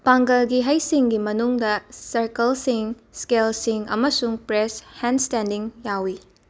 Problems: none marked